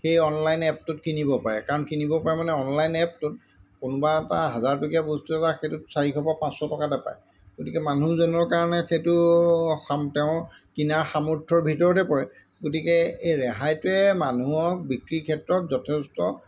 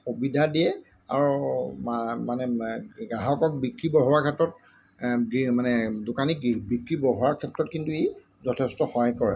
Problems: none marked